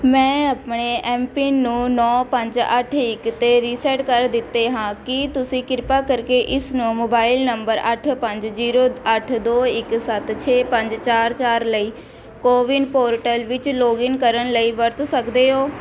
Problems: none marked